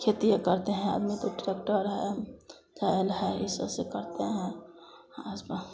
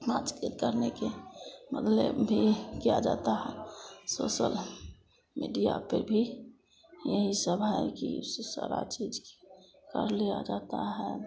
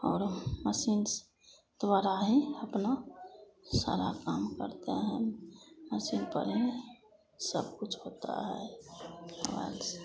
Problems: constant background noise, continuous background conversations